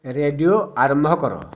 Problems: none marked